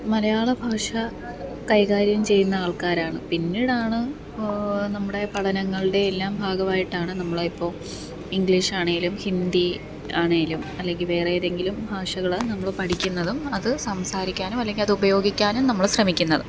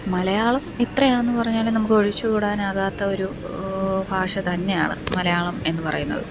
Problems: background sounds at intervals